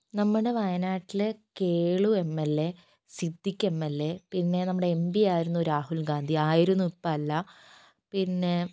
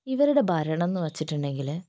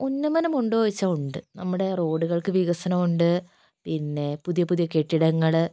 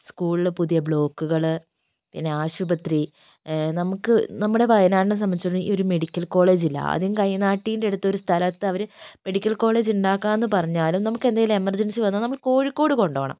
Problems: none marked